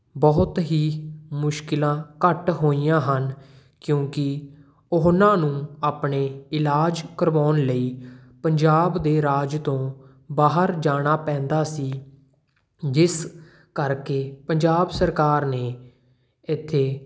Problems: none marked